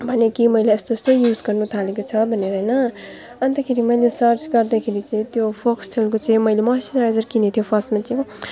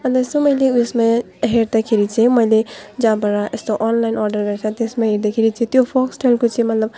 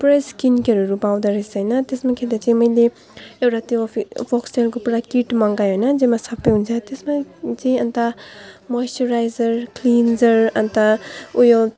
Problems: none marked